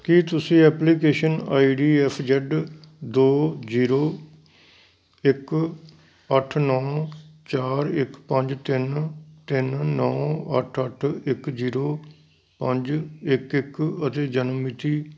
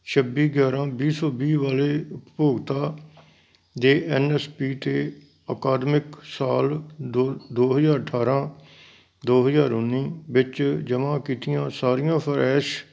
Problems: background sounds at intervals